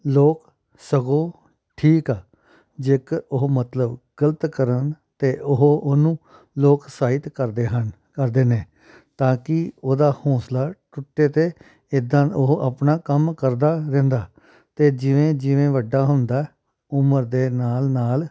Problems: none marked